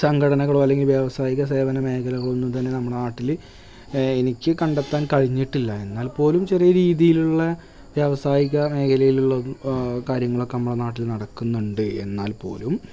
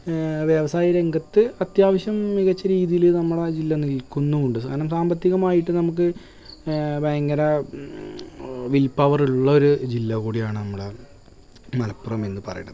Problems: background sounds at intervals